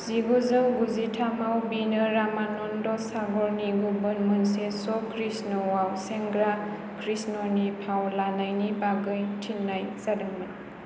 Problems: constant background noise